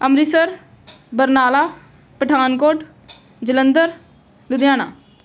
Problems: background sounds at intervals